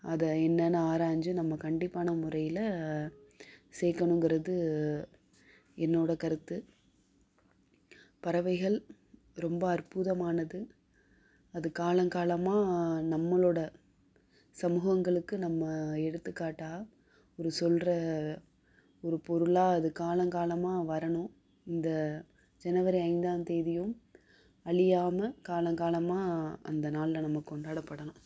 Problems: background sounds at intervals